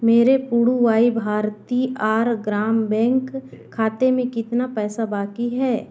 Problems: none marked